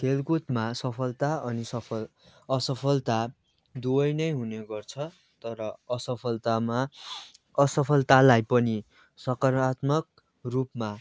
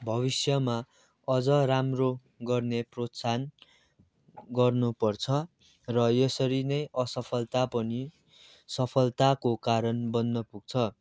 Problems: constant background noise